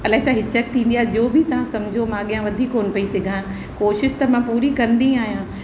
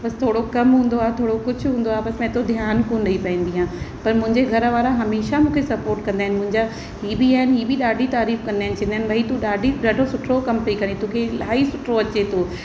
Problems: constant background noise, echo